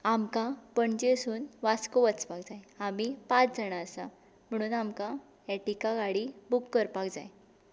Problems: constant background noise